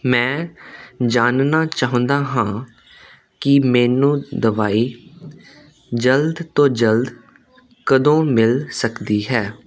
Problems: constant background noise